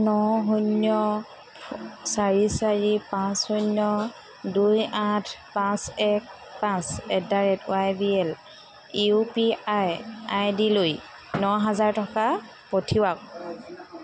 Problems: constant background noise